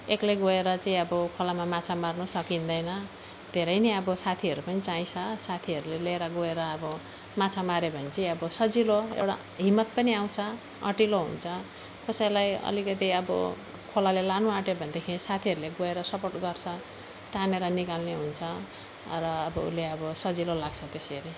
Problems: none marked